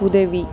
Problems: constant background noise